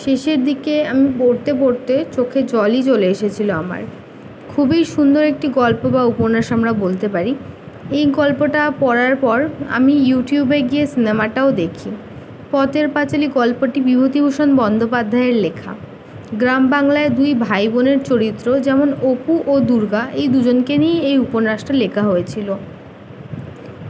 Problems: constant background noise